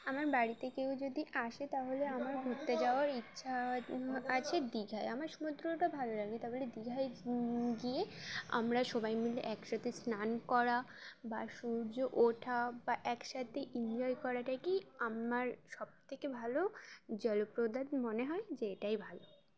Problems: constant background noise, continuous background conversations